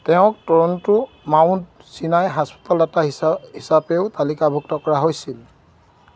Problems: none marked